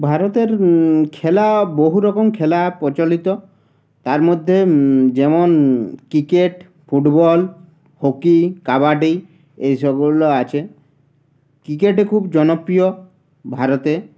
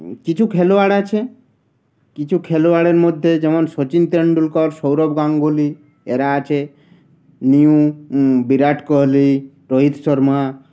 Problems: constant background noise